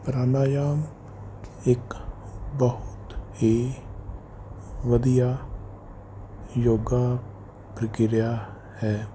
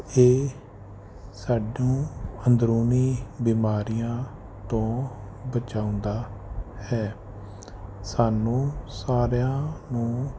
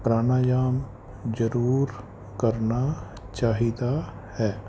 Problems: none marked